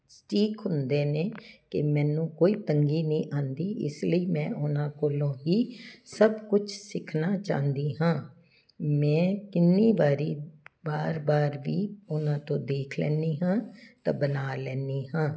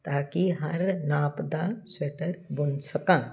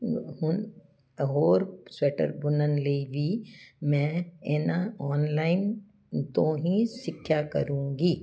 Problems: none marked